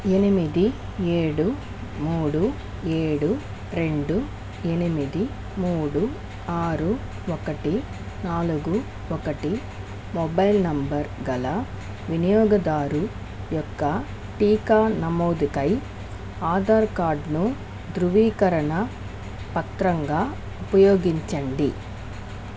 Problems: constant background noise